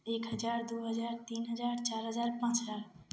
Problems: none marked